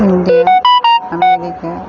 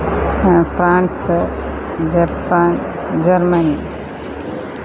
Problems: constant background noise